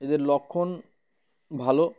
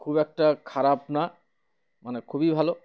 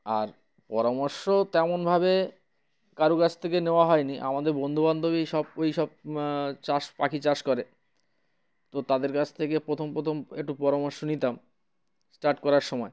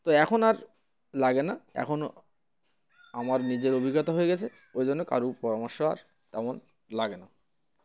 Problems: none marked